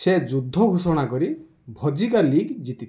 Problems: none marked